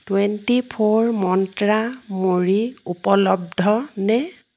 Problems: none marked